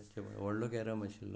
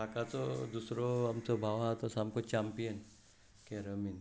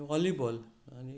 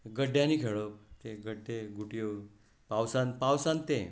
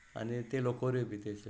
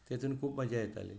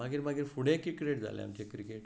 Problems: none marked